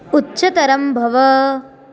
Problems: constant background noise